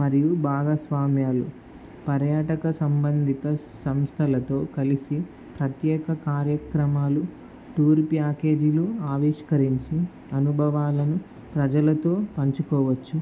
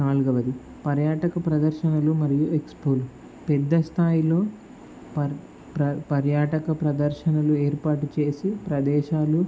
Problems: constant background noise